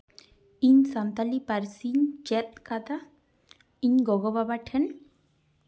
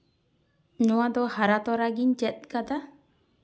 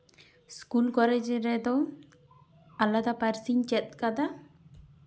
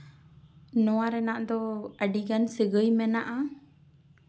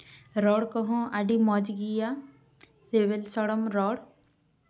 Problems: none marked